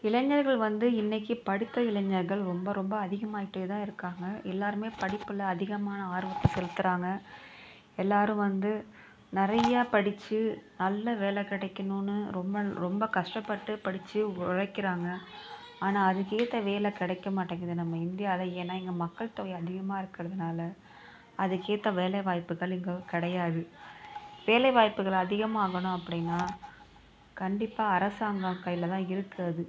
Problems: background sounds at intervals, continuous background conversations